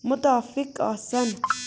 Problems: constant background noise